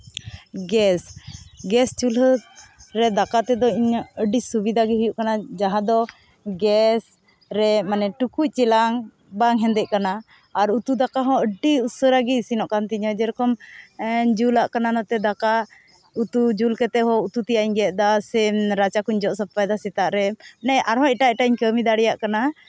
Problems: none marked